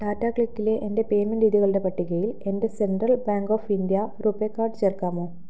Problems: low volume